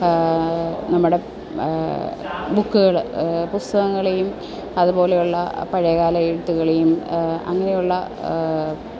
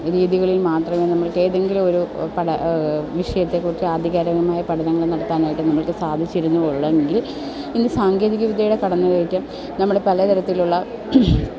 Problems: none marked